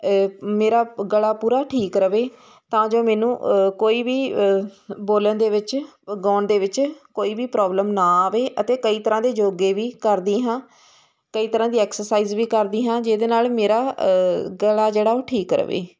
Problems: constant background noise